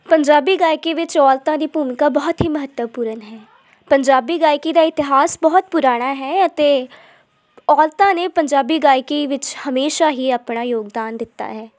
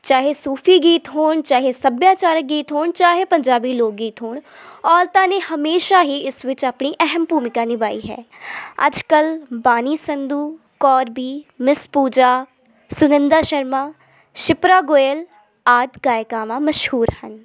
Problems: none marked